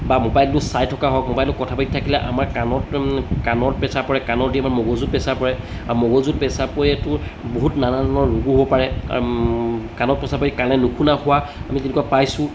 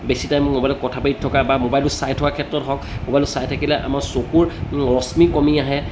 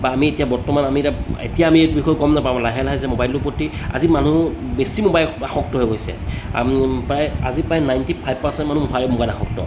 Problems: background sounds at intervals